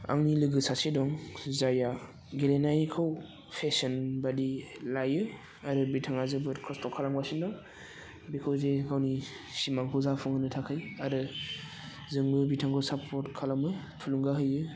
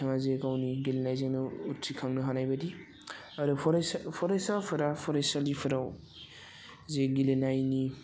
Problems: constant background noise